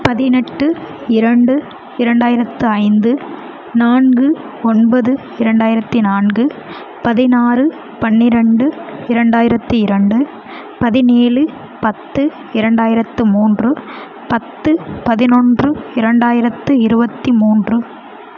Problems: none marked